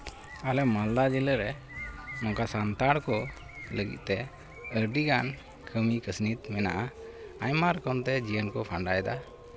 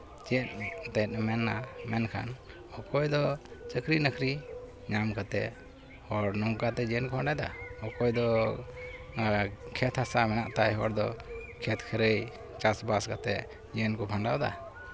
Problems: constant background noise, continuous background conversations